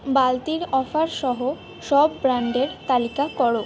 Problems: background sounds at intervals